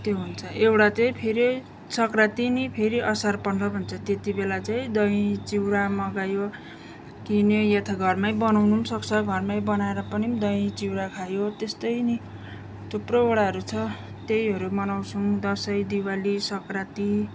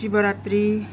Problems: none marked